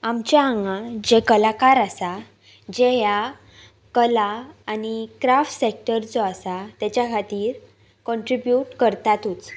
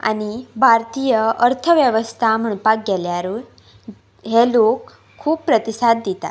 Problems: background sounds at intervals